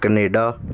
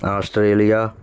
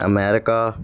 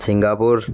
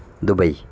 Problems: constant background noise